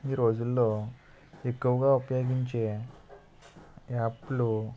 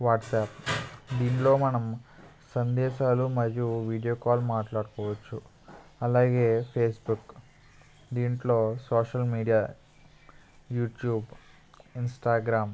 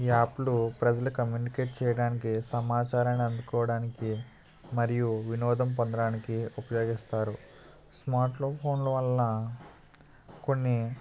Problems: none marked